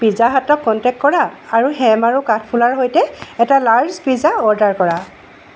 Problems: background sounds at intervals